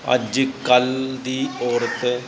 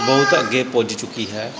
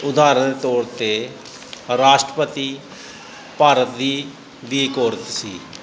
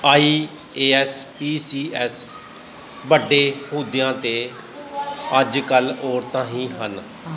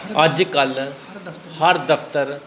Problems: constant background noise, continuous background conversations